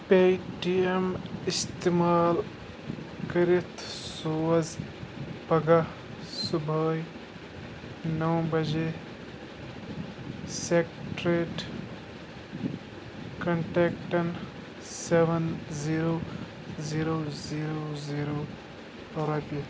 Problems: constant background noise